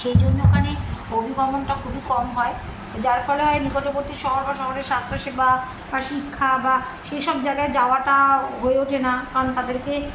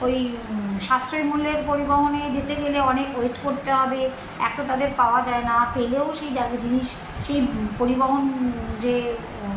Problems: none marked